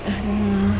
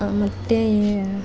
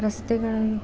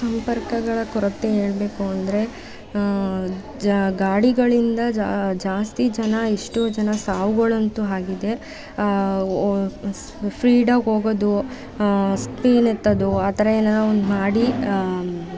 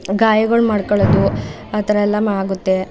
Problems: background sounds at intervals